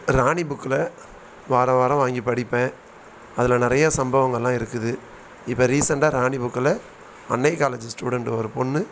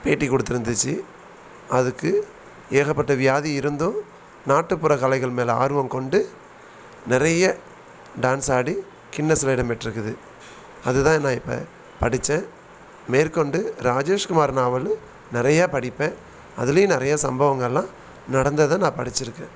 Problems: constant background noise